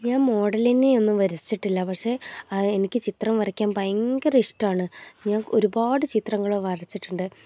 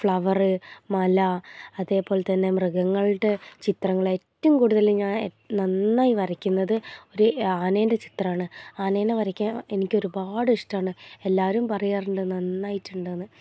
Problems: low volume